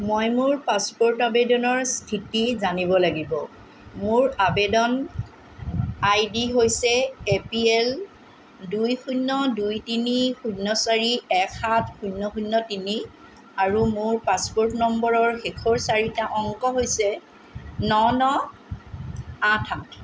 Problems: constant background noise